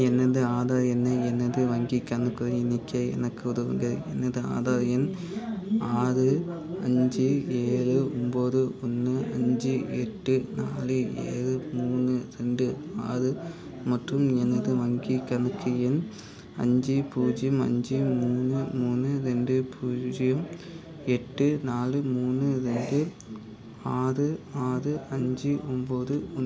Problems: background conversations at intervals